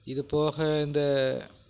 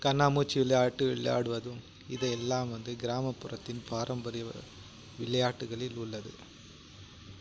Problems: background sounds at intervals